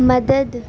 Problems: none marked